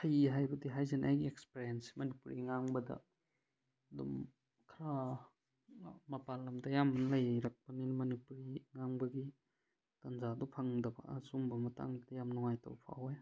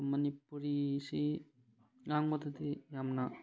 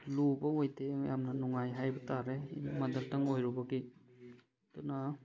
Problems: background sounds at intervals